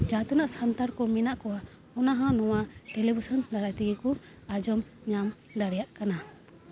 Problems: none marked